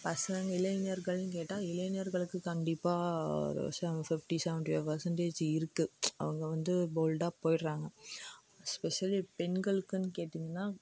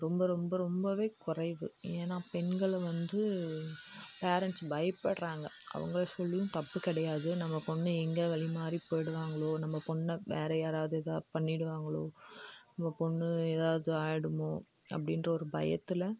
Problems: background sounds at intervals, low volume